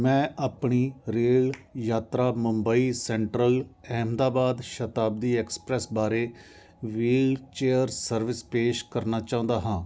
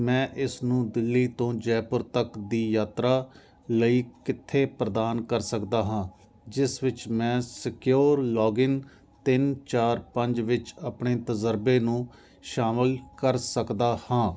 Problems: constant background noise